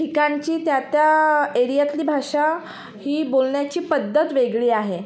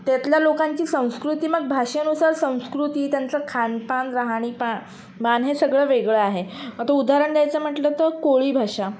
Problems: background sounds at intervals